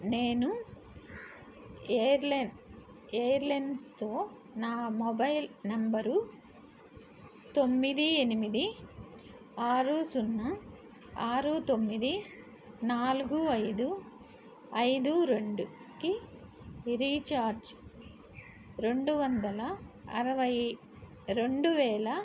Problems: constant background noise